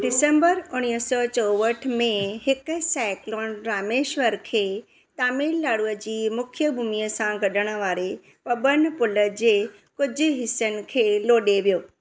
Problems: constant background noise